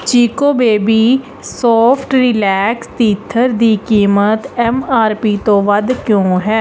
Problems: none marked